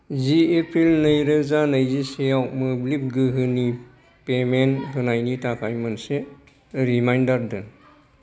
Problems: none marked